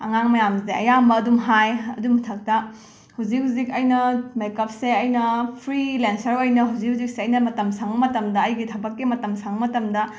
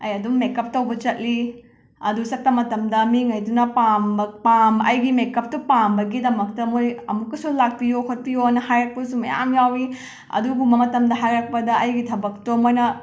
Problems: background sounds at intervals